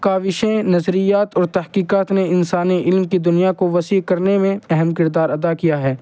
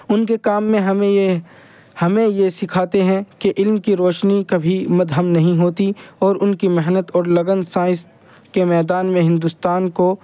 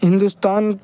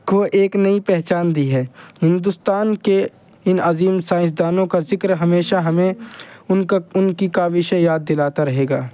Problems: constant background noise